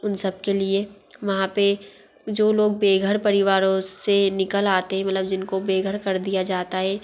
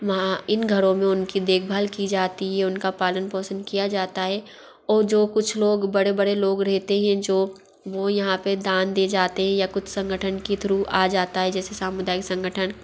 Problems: background sounds at intervals